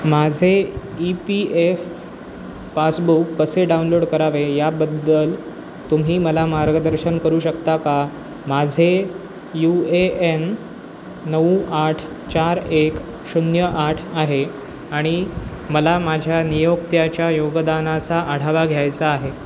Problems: constant background noise